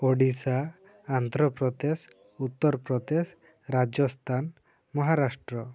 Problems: low volume